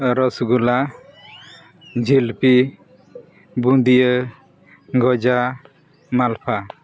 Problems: none marked